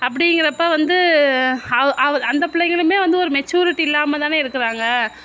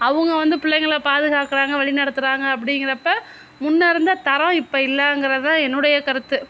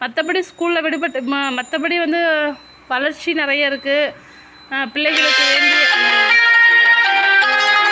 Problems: constant background noise